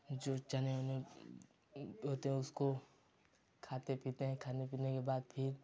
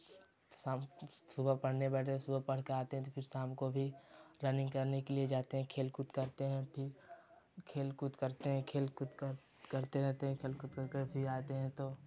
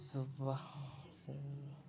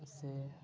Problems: low volume